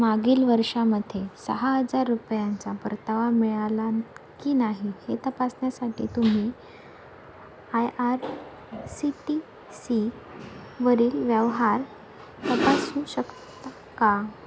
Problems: constant background noise